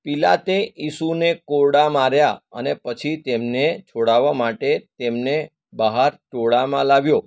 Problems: none marked